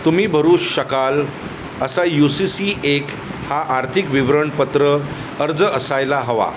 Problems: none marked